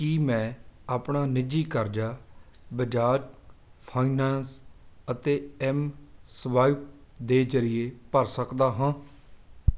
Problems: background sounds at intervals